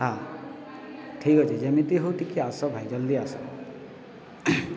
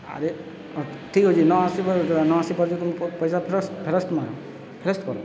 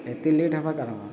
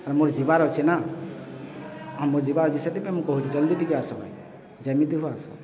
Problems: constant background noise, continuous background conversations